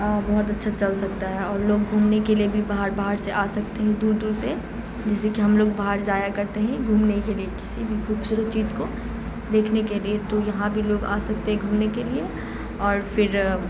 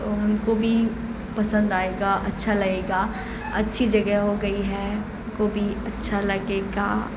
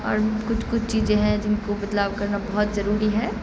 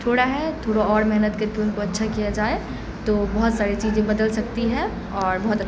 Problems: constant background noise